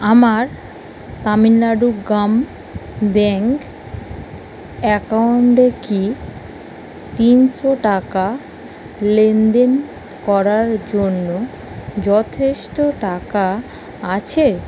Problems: constant background noise